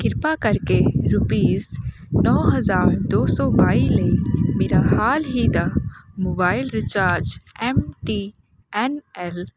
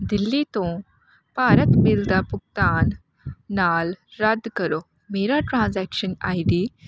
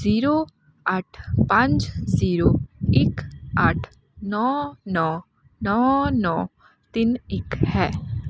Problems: none marked